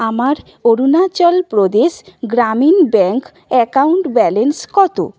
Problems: background sounds at intervals